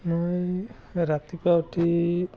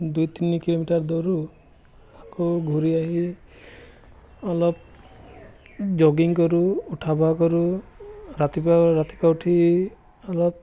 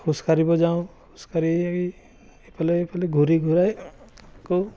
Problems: background conversations at intervals